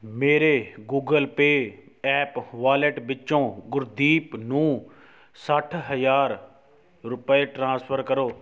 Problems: background sounds at intervals